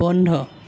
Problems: background sounds at intervals